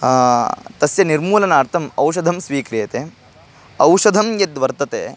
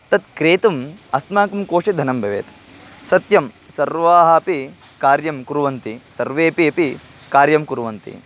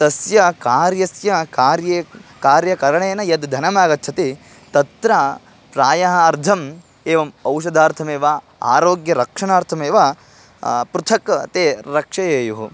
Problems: constant background noise